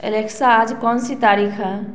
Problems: background sounds at intervals